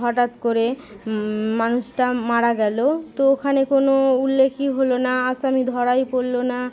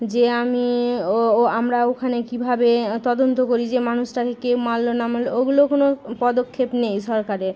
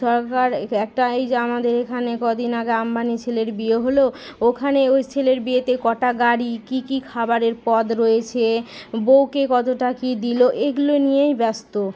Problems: none marked